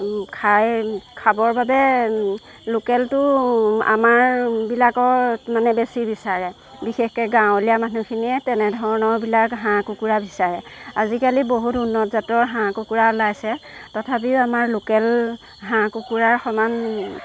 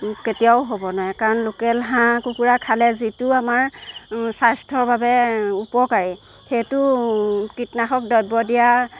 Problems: background sounds at intervals